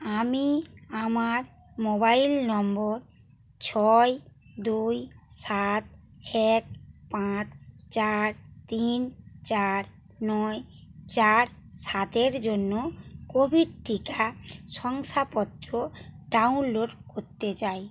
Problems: background sounds at intervals